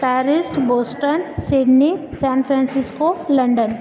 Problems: constant background noise